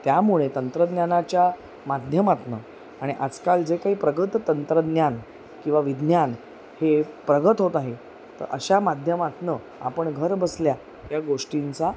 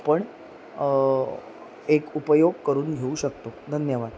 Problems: constant background noise, background conversations at intervals